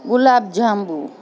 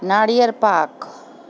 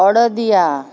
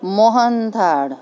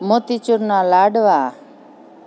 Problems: constant background noise